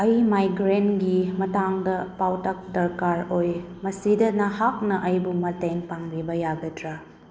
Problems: background sounds at intervals